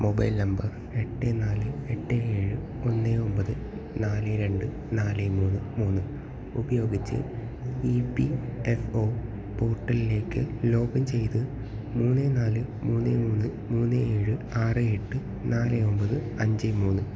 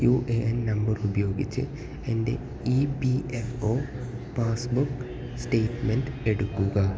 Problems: constant background noise, echo, low volume